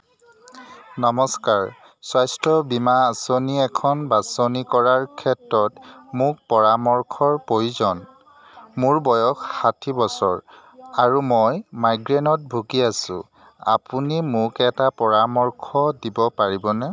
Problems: constant background noise, continuous background conversations